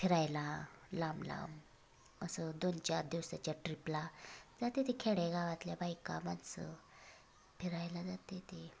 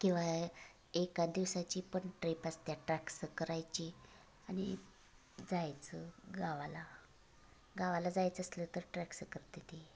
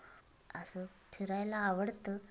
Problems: background sounds at intervals